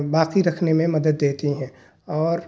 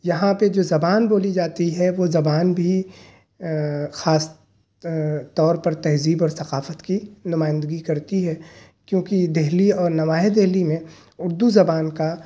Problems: none marked